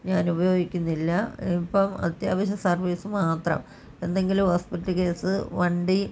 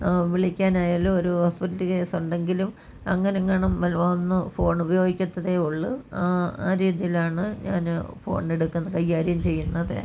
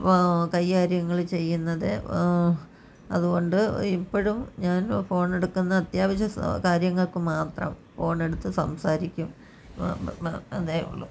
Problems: none marked